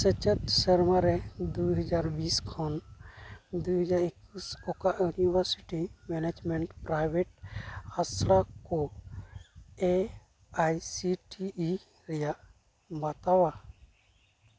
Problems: background sounds at intervals